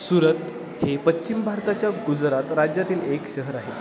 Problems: constant background noise